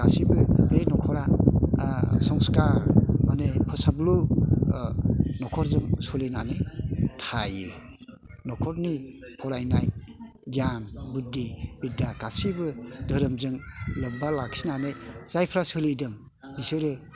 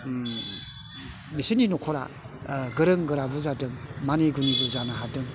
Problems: constant background noise